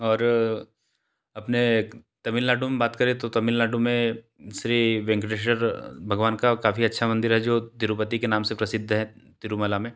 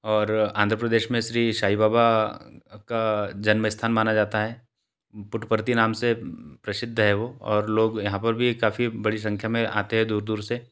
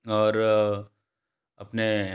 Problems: background sounds at intervals